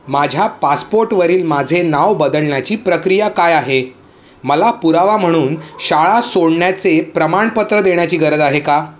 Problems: constant background noise